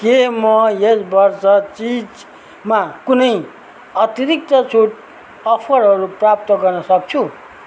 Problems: none marked